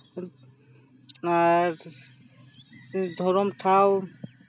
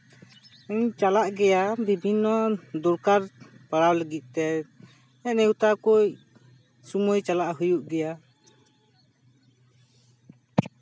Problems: constant background noise, background conversations at intervals